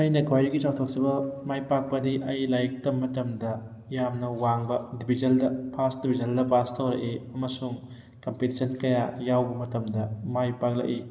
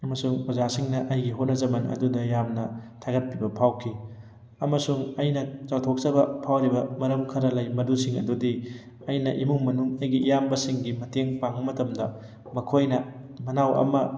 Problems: background sounds at intervals